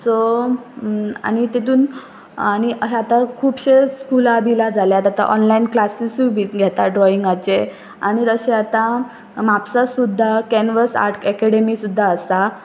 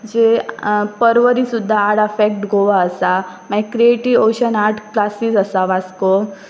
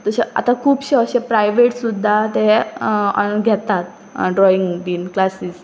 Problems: constant background noise